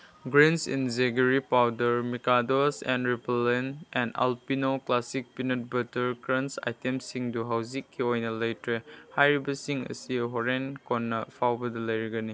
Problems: none marked